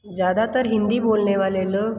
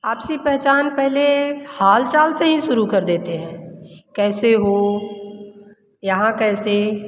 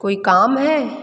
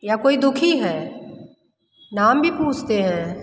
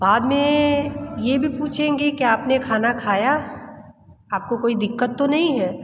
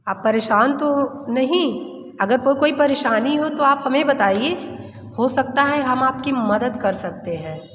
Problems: background sounds at intervals, continuous background conversations, echo